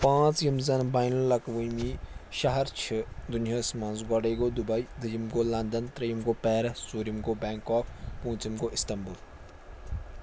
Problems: none marked